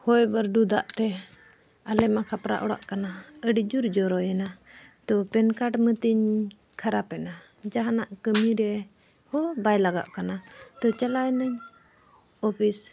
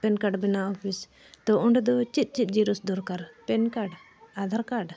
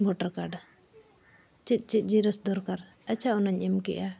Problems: background sounds at intervals, background conversations at intervals